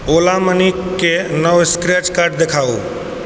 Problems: constant background noise